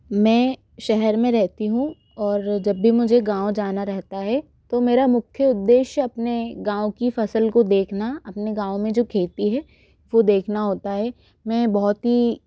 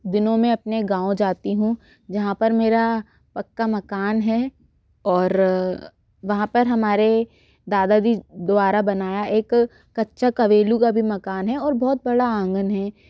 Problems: background sounds at intervals